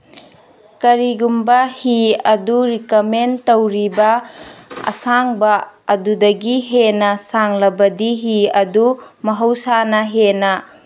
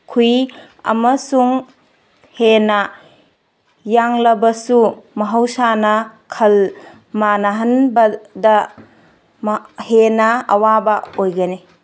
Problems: none marked